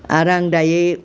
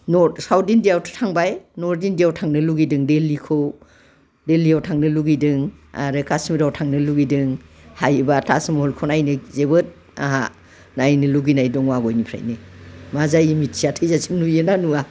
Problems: background conversations at intervals